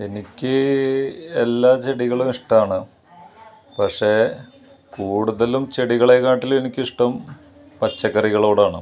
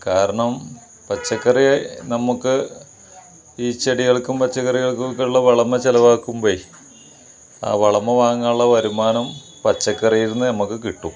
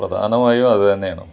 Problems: background sounds at intervals